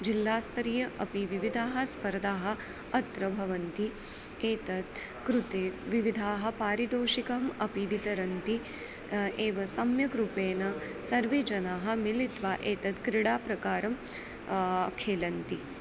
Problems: constant background noise